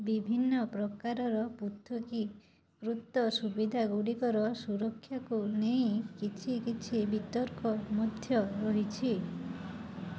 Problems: low volume